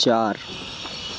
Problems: constant background noise